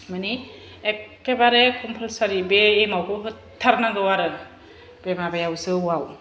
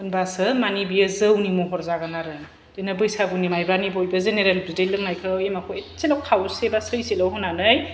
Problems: none marked